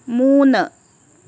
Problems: constant background noise